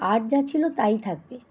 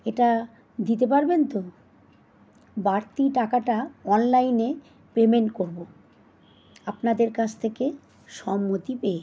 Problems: constant background noise